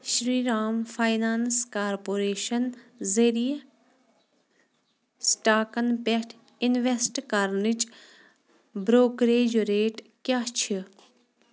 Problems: background sounds at intervals